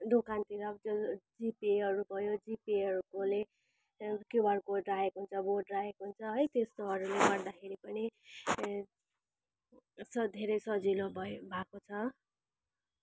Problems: none marked